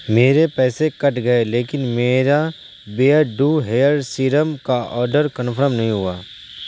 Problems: constant background noise